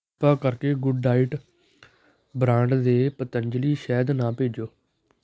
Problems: background sounds at intervals